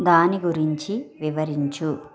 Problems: background sounds at intervals, continuous background conversations